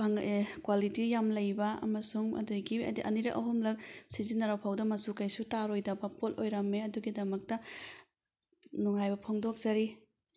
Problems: none marked